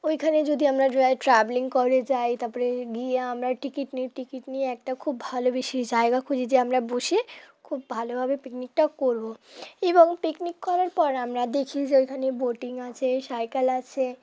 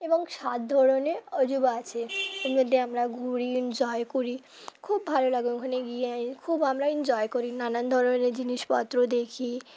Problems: none marked